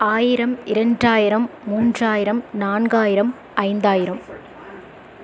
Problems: constant background noise